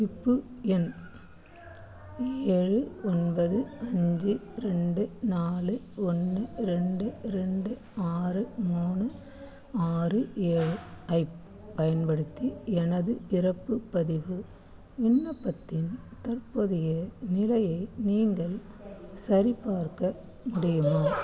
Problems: background sounds at intervals, background conversations at intervals